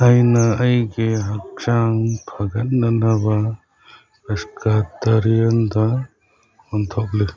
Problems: background sounds at intervals, background conversations at intervals